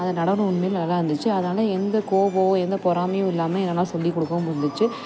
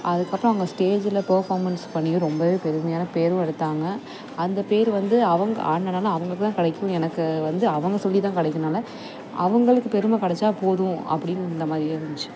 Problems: constant background noise